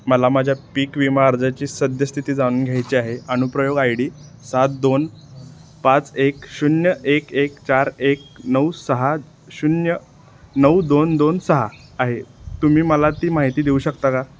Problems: constant background noise